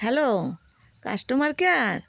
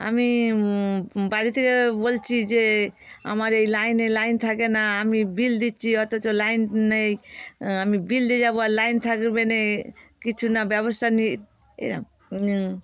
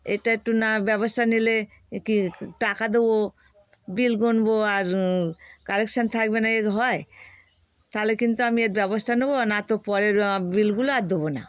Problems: constant background noise